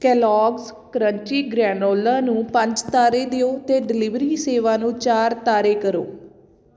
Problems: none marked